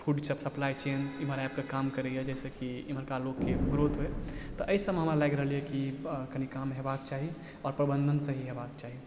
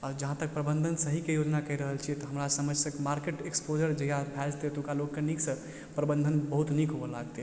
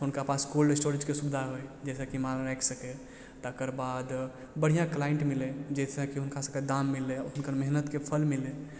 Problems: background sounds at intervals, low volume